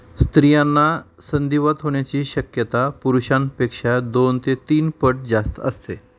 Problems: constant background noise, background conversations at intervals